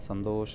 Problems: none marked